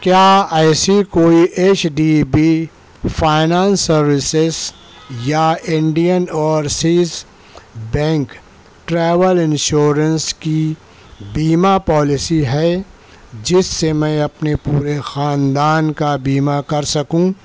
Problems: none marked